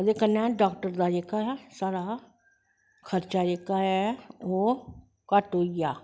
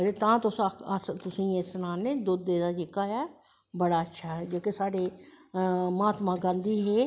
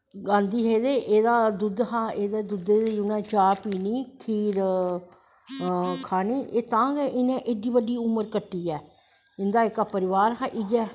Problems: none marked